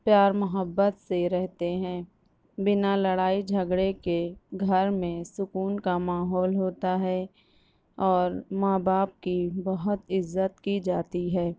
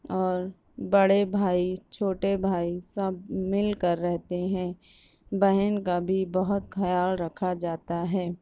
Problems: none marked